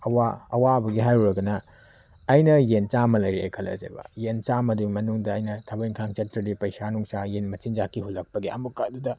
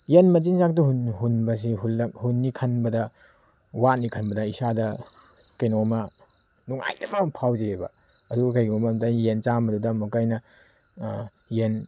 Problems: background sounds at intervals